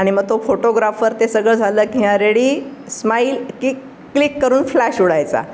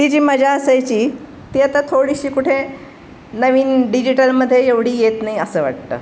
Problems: constant background noise